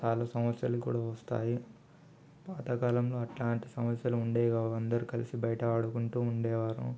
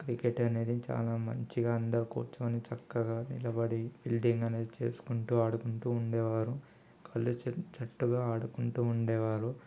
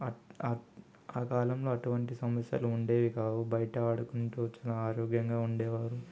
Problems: none marked